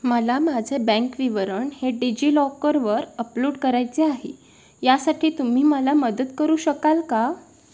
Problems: background sounds at intervals